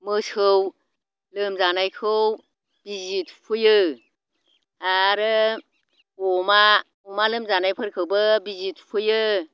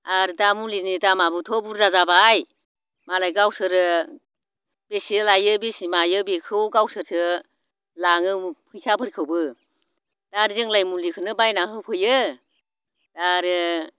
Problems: none marked